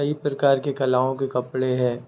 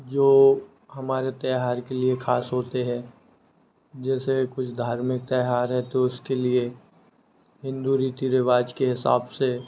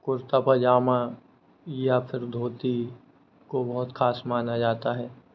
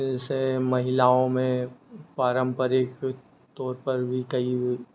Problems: constant background noise